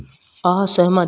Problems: none marked